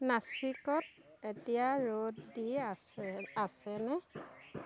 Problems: constant background noise